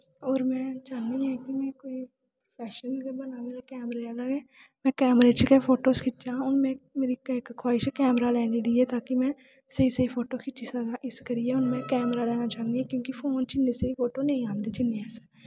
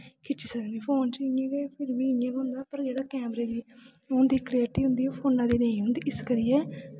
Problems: background sounds at intervals